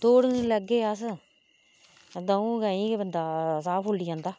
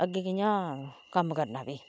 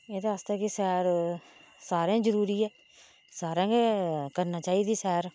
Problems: none marked